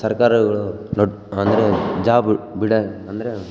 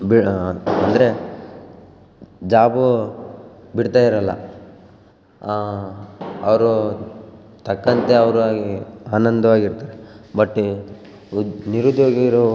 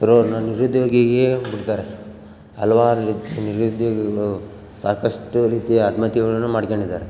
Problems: background sounds at intervals